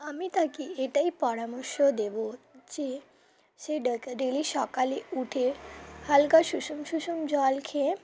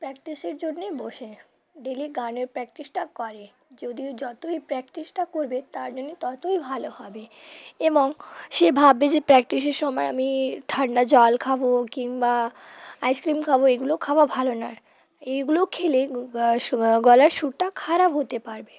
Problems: constant background noise, background conversations at intervals